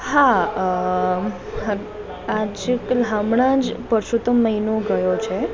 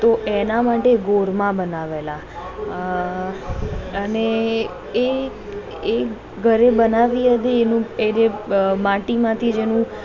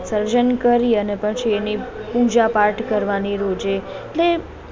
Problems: continuous background conversations